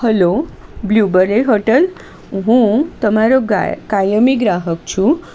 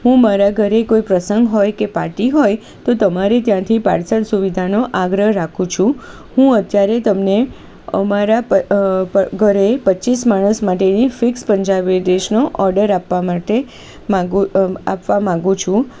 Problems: constant background noise